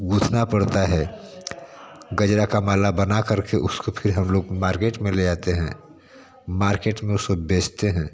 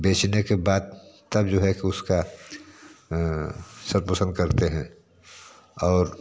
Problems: none marked